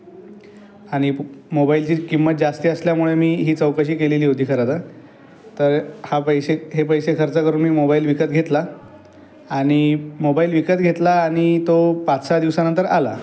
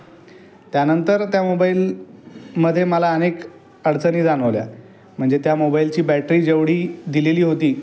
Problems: none marked